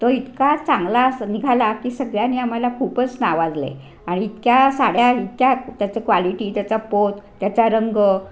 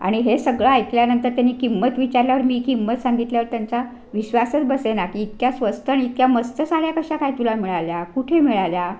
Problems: constant background noise